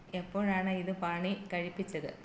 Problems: low volume